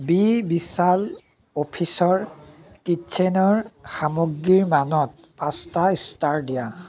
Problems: background sounds at intervals, continuous background conversations